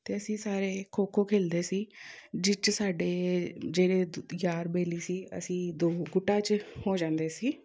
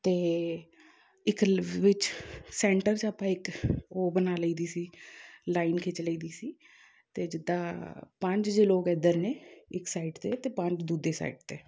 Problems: background sounds at intervals